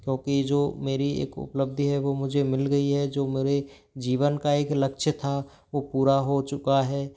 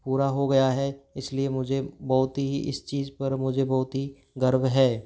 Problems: background sounds at intervals